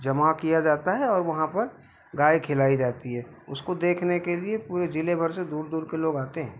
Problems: constant background noise